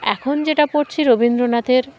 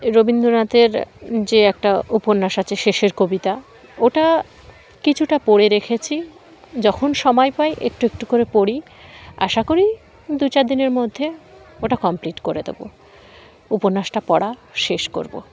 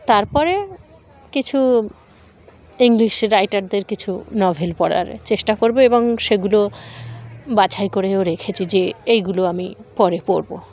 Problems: constant background noise